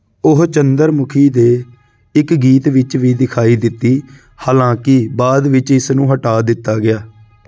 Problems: background sounds at intervals